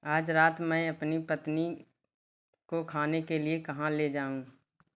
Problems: none marked